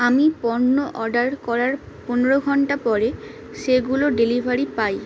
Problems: constant background noise